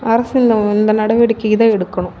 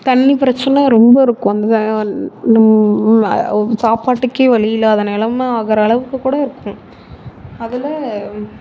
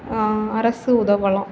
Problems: none marked